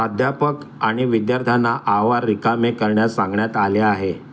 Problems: background sounds at intervals